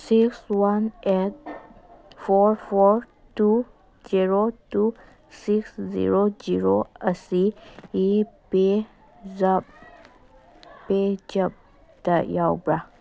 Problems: background sounds at intervals, background conversations at intervals